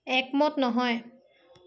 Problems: none marked